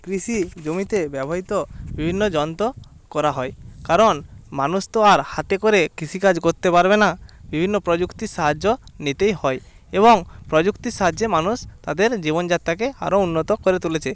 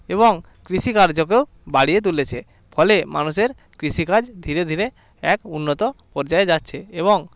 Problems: continuous background conversations